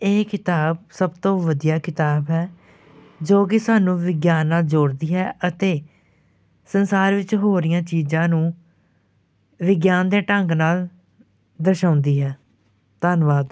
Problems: none marked